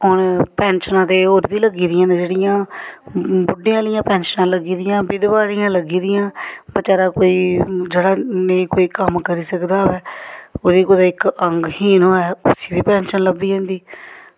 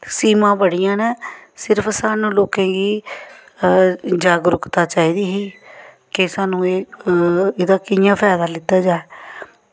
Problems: none marked